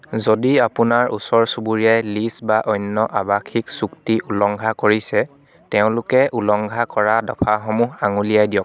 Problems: continuous background conversations